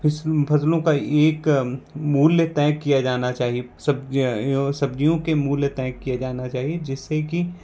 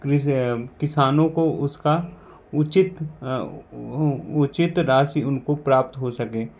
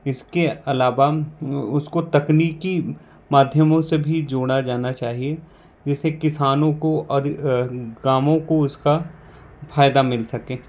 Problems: none marked